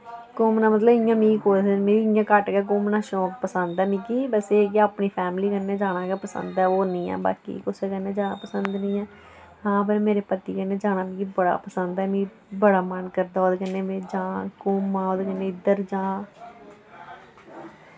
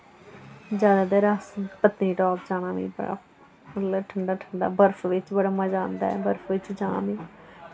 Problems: none marked